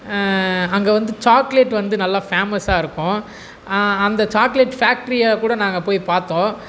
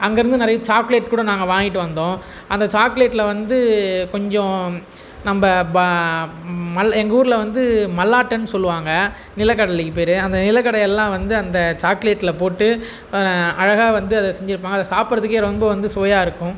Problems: none marked